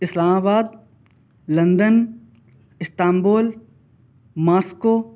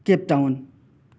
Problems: none marked